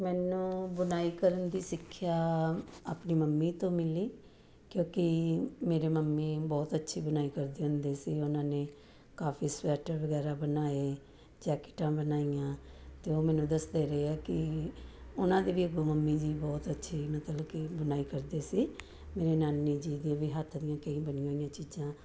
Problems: none marked